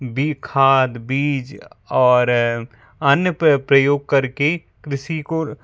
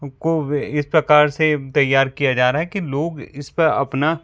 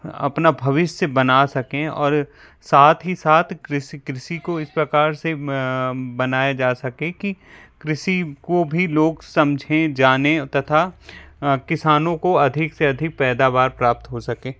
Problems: background sounds at intervals